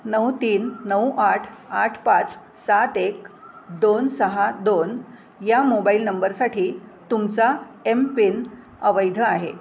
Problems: none marked